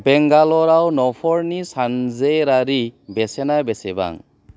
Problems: low volume